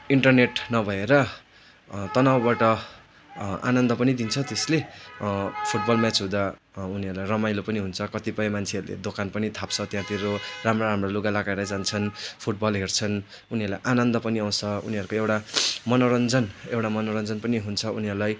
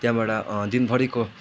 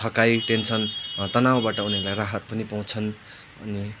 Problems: constant background noise